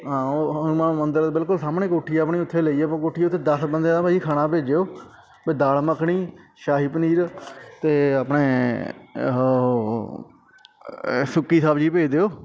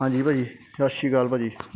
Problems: constant background noise